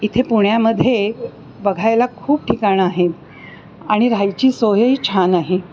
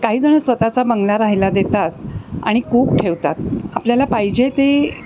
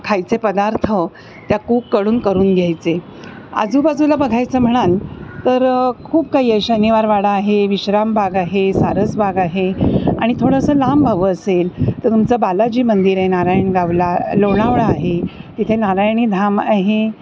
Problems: constant background noise, background conversations at intervals